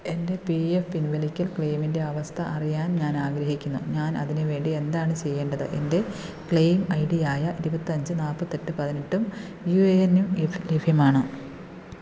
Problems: none marked